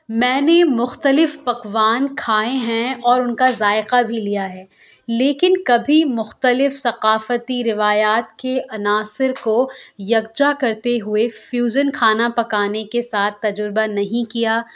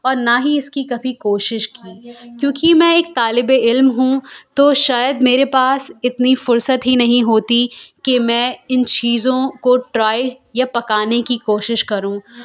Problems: background conversations at intervals